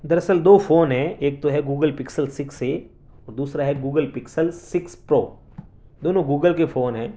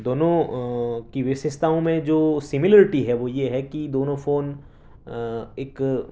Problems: none marked